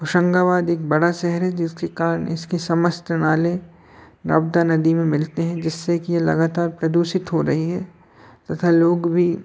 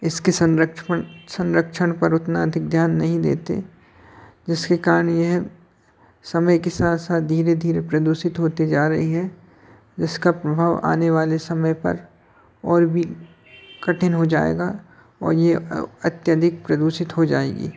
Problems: none marked